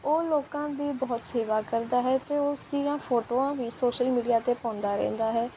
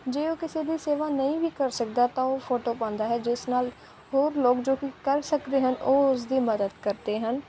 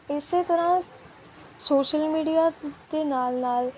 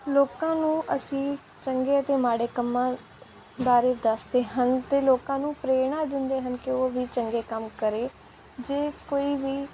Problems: constant background noise